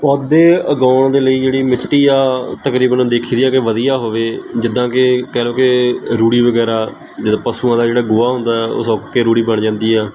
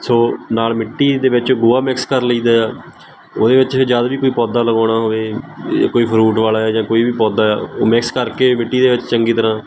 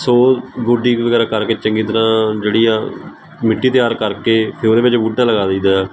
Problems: constant background noise